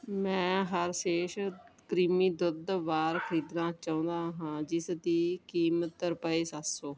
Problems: background sounds at intervals